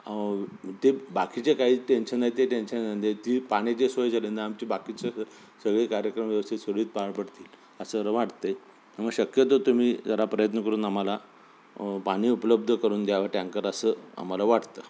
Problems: constant background noise